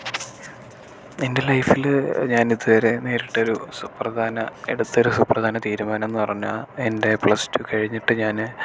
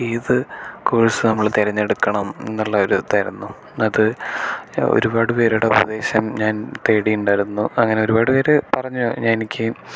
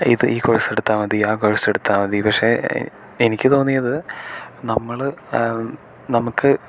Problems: none marked